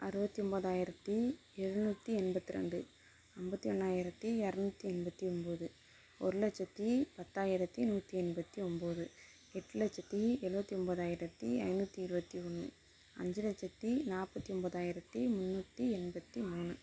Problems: constant background noise